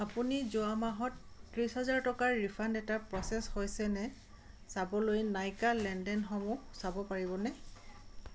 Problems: constant background noise